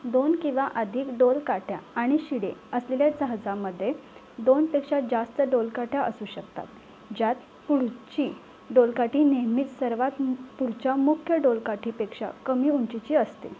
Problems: constant background noise, continuous background conversations